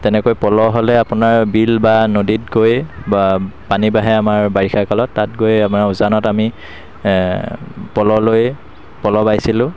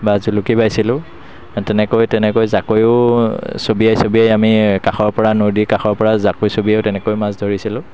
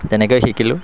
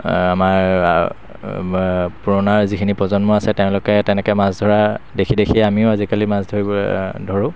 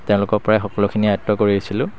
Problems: constant background noise